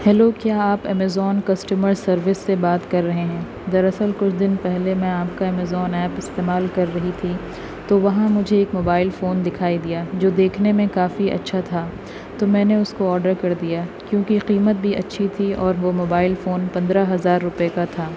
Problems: constant background noise